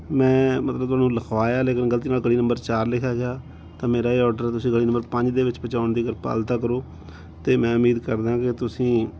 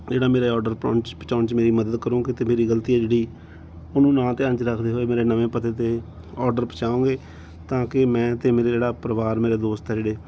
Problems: background sounds at intervals